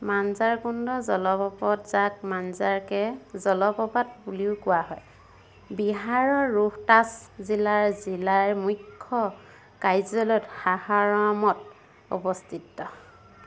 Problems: constant background noise